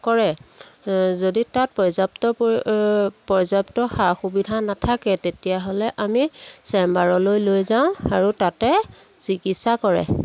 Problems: background sounds at intervals